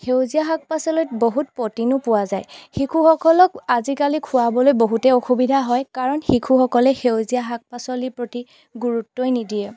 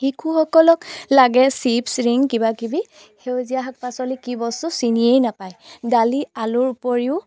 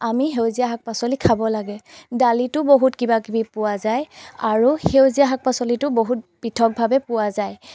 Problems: background sounds at intervals